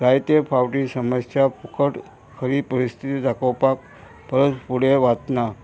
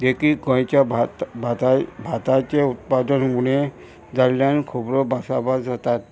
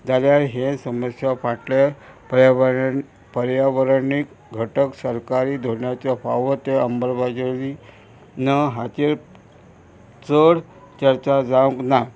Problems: constant background noise